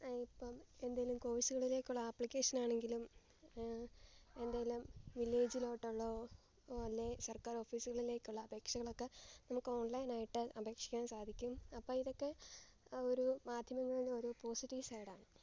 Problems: background sounds at intervals